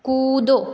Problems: none marked